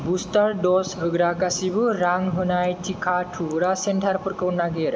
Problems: none marked